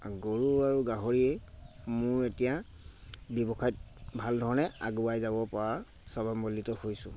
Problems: constant background noise